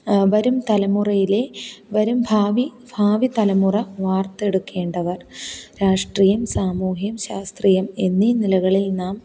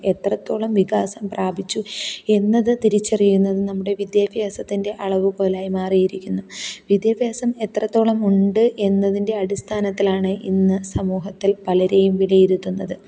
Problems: none marked